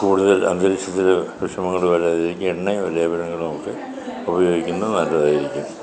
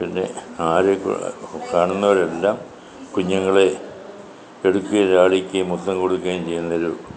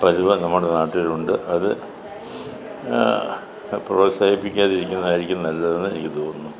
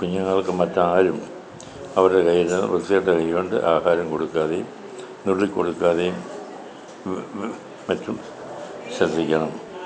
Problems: continuous background conversations